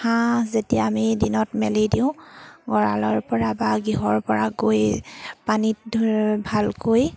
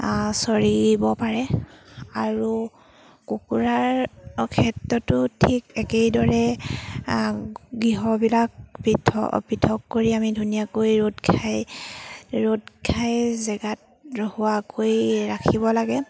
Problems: background sounds at intervals